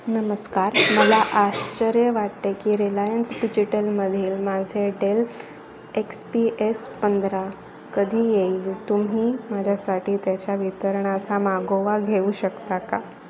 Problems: constant background noise, background conversations at intervals